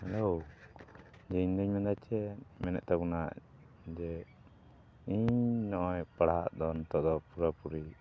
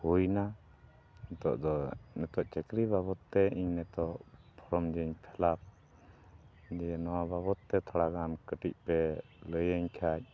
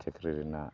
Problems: background sounds at intervals